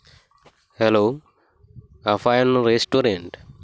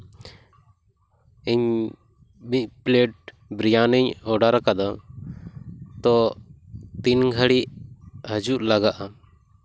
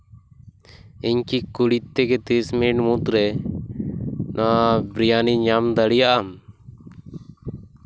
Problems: background sounds at intervals